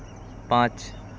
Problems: constant background noise